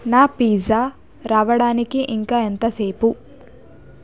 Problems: none marked